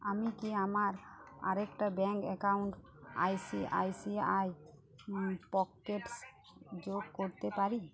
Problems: continuous background conversations